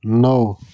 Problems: constant background noise